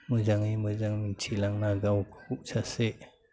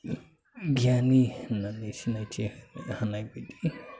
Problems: constant background noise